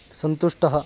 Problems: none marked